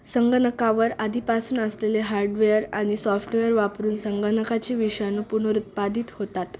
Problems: constant background noise